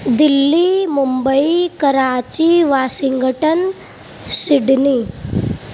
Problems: constant background noise